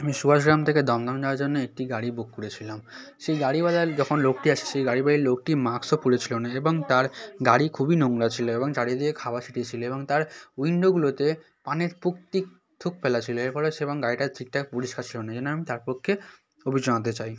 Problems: continuous background conversations